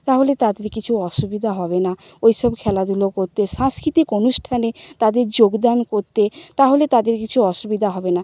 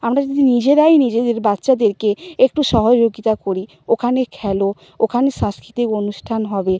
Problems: background sounds at intervals